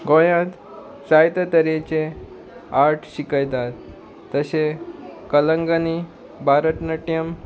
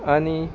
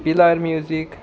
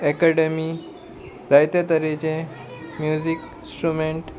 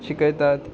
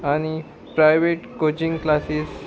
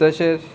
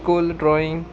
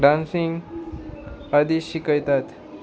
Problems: none marked